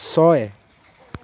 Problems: background conversations at intervals